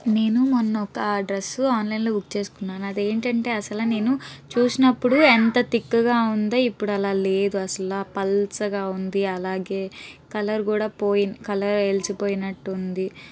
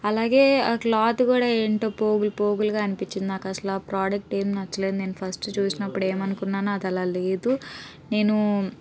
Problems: background conversations at intervals